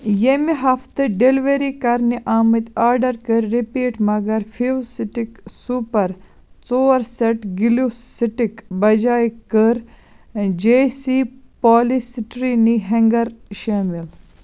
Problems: constant background noise